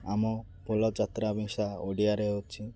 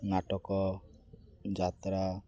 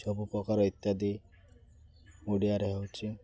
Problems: constant background noise